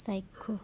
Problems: background sounds at intervals